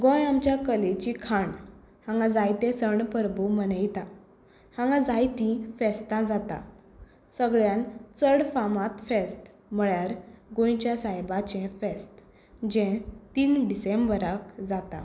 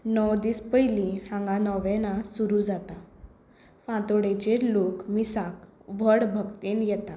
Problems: none marked